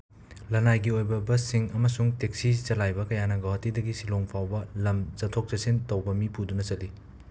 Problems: constant background noise